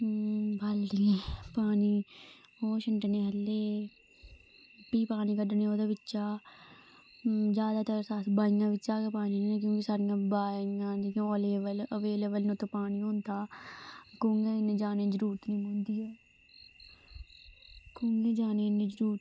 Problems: constant background noise, low volume